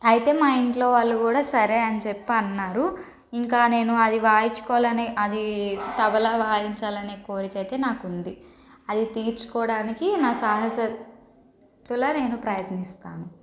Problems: constant background noise